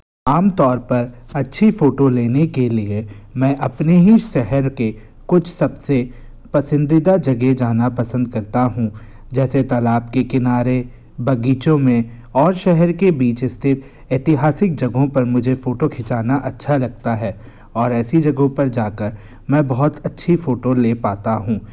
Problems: constant background noise